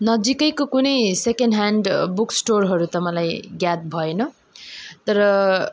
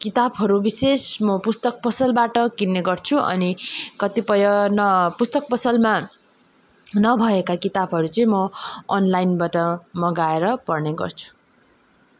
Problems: none marked